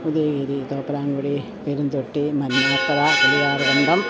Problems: constant background noise, low volume